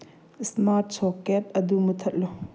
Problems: low volume